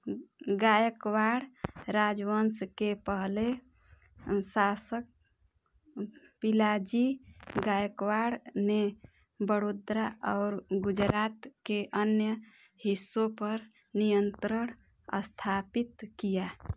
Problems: background sounds at intervals